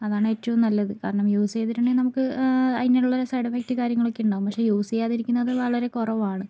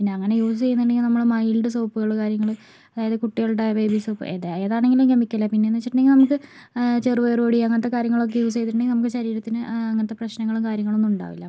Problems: none marked